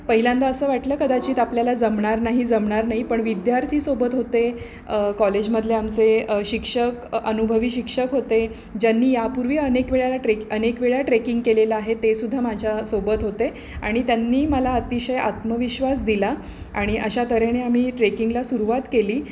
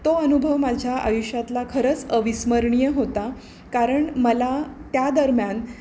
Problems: none marked